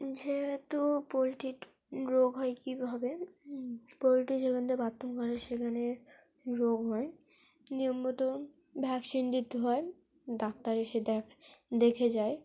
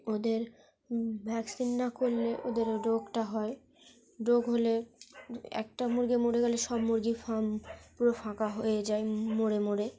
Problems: background sounds at intervals, low volume